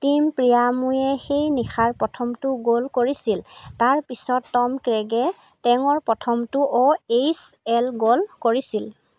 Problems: constant background noise